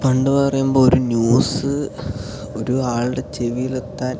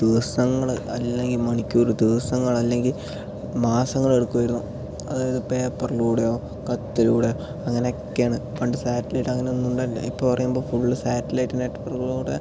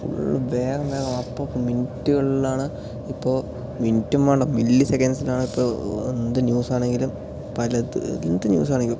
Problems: none marked